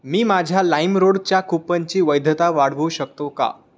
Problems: none marked